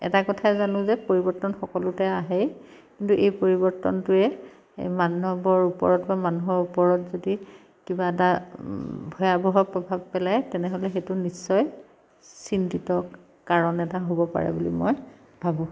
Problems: none marked